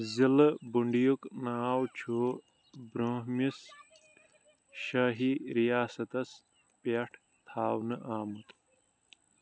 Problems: constant background noise